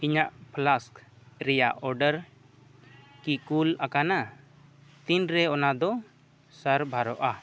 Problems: none marked